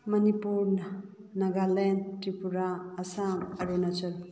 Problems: low volume